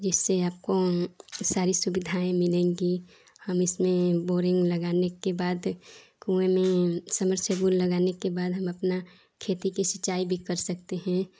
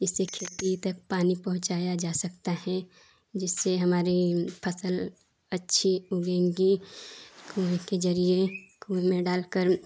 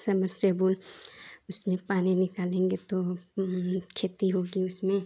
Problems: none marked